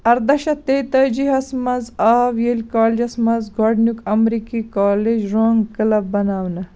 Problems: background sounds at intervals